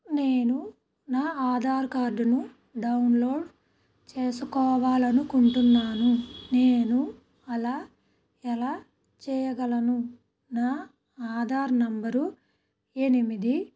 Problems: background sounds at intervals